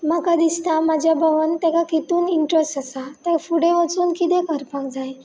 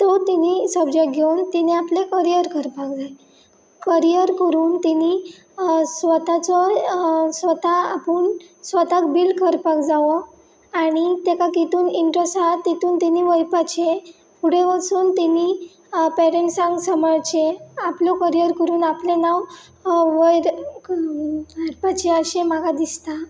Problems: none marked